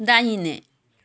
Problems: background sounds at intervals